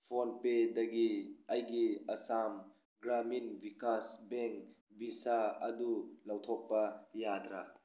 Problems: none marked